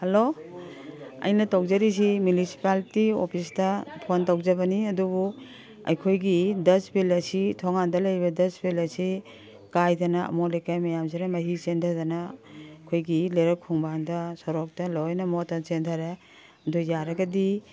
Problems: background sounds at intervals, background conversations at intervals